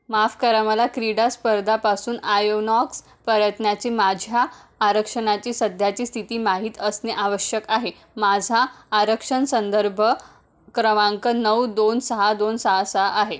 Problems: none marked